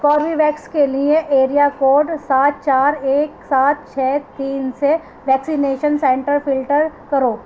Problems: constant background noise